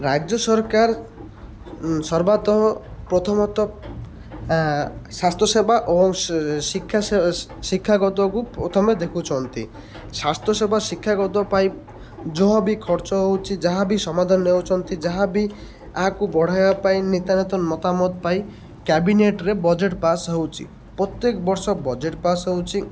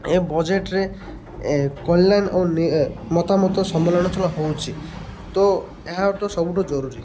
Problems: constant background noise